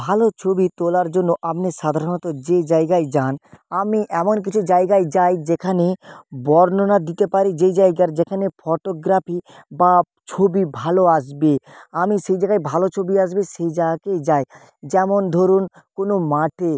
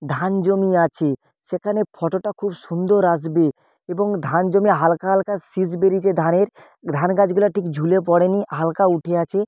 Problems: background sounds at intervals